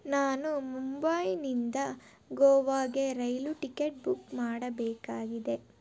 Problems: none marked